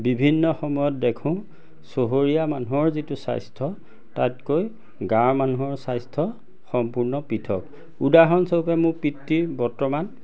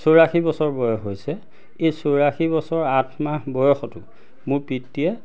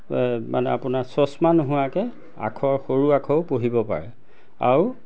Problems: none marked